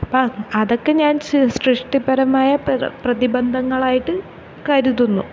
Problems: background sounds at intervals